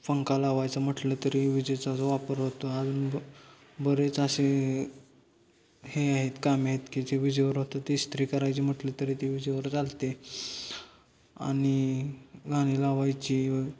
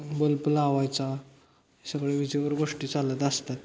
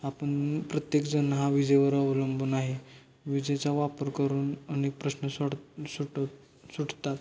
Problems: background sounds at intervals